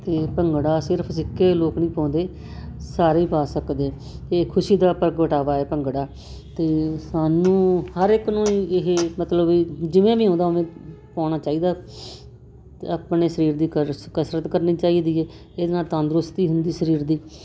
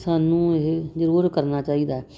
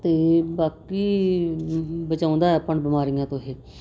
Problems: constant background noise